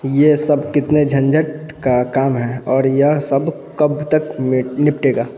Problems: none marked